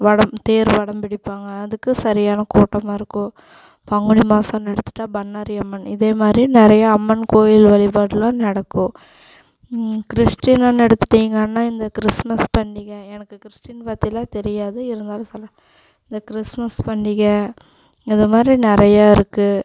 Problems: constant background noise